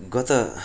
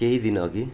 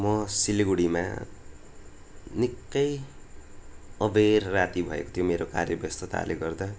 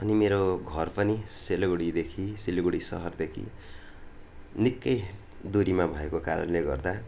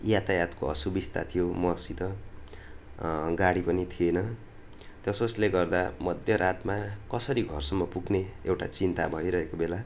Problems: none marked